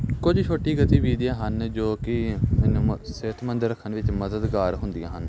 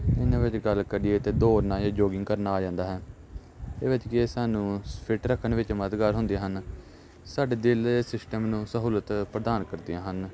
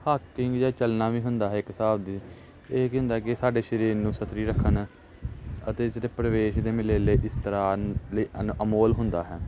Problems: constant background noise, background conversations at intervals